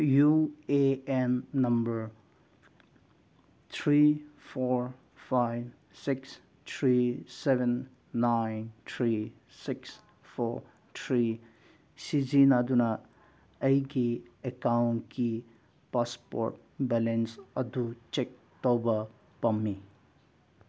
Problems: none marked